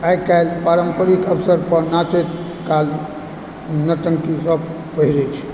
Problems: background sounds at intervals